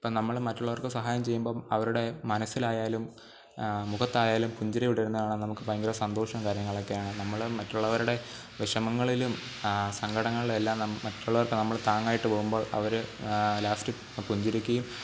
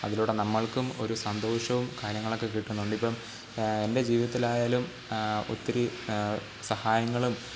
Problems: constant background noise, low volume